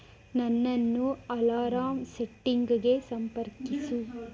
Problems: background conversations at intervals